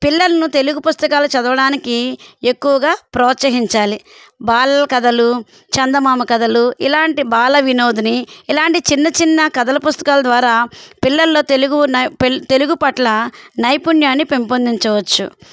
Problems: none marked